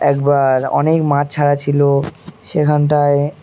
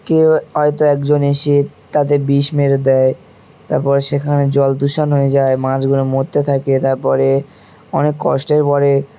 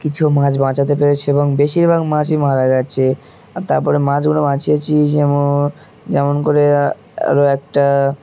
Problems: constant background noise, continuous background conversations